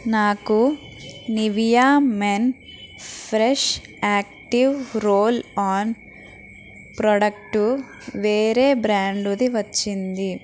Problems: constant background noise